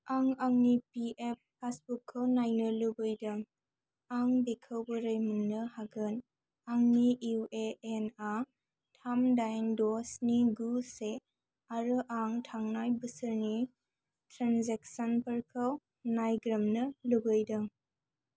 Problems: low volume